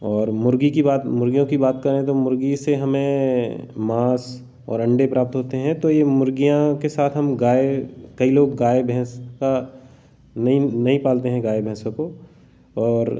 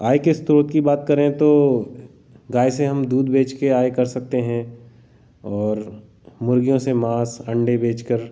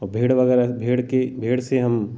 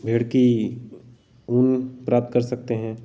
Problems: none marked